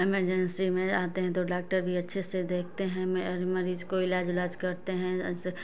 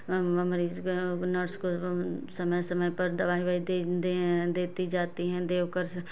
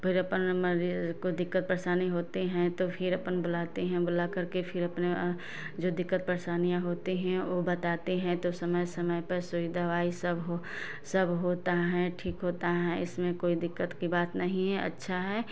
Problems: none marked